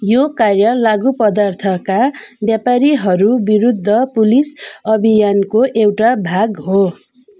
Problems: none marked